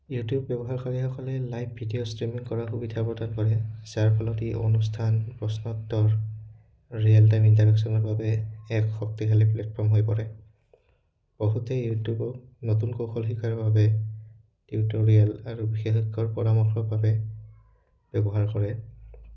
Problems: background sounds at intervals